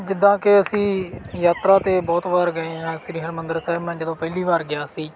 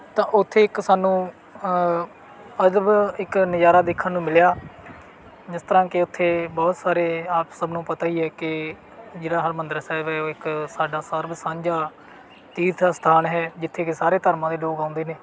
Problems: background sounds at intervals